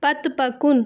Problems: constant background noise